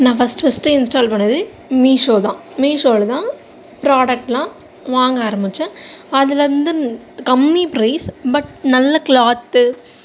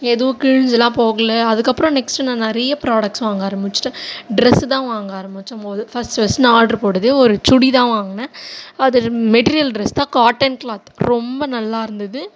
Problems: none marked